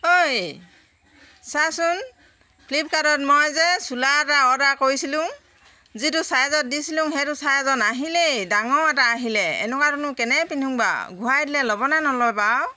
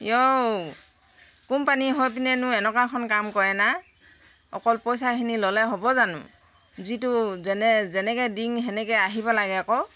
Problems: none marked